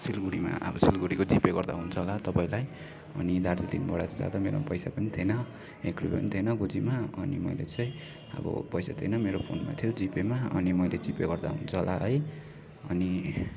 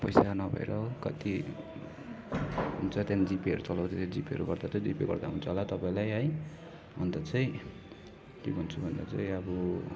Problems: constant background noise, continuous background conversations